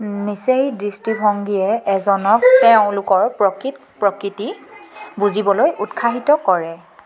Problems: none marked